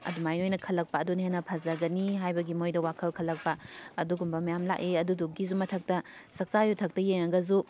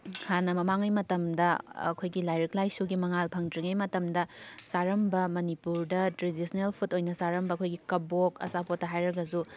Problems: background sounds at intervals